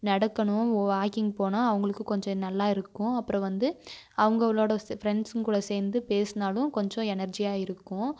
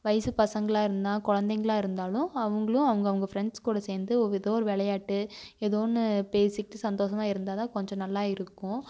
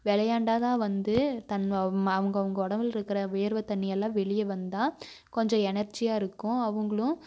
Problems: none marked